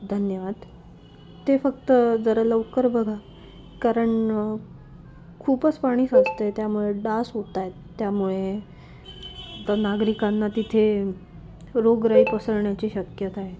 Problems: constant background noise, low volume